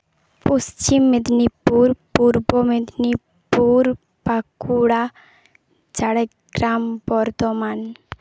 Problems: background sounds at intervals